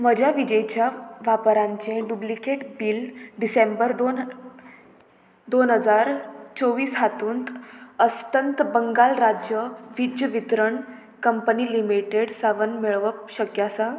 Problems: none marked